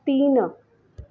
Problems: none marked